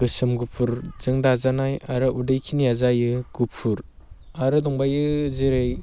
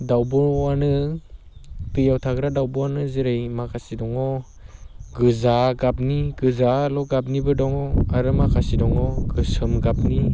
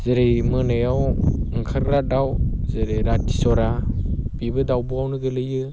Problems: constant background noise